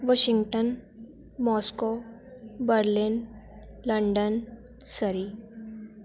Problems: continuous background conversations